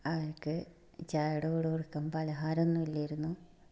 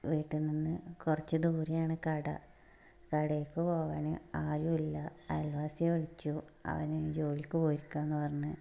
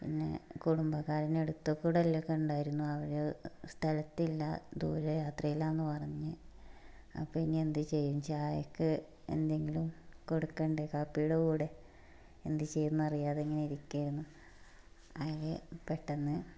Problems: background sounds at intervals, low volume